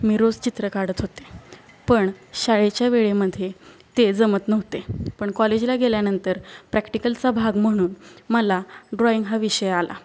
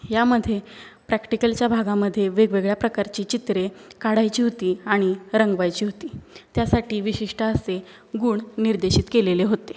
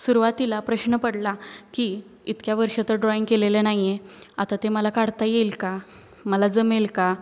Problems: background sounds at intervals